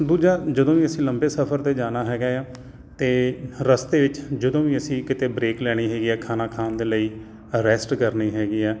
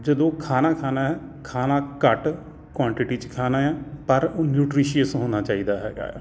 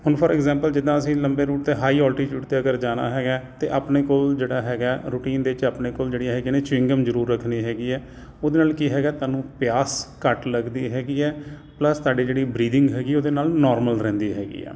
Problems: none marked